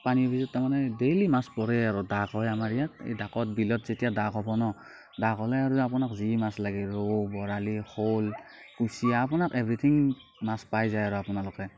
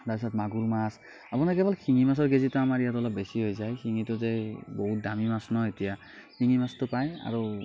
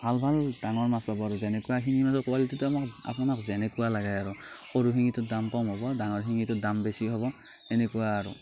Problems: none marked